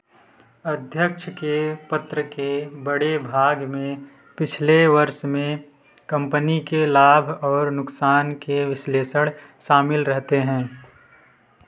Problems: background sounds at intervals, continuous background conversations